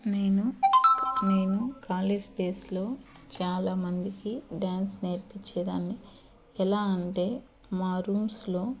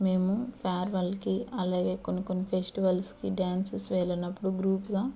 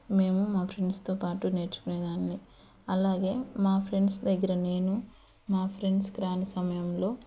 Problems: background sounds at intervals